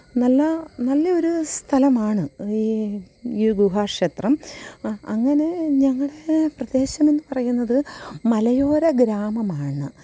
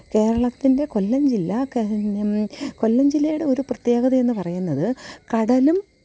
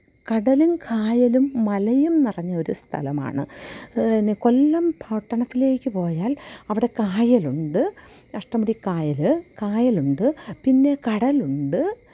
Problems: none marked